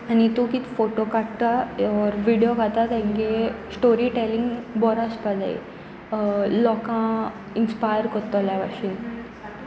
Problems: continuous background conversations